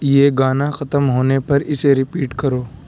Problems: constant background noise